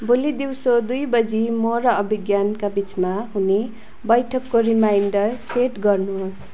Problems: constant background noise